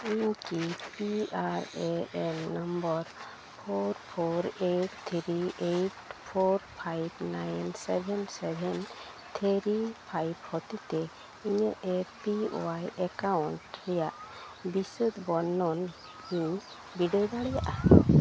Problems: none marked